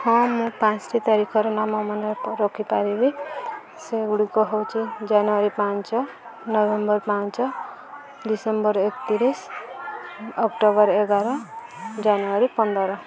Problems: constant background noise, continuous background conversations